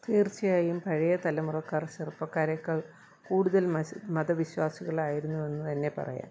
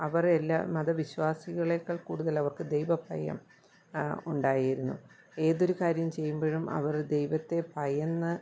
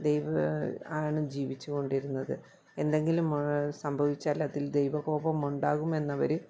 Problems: low volume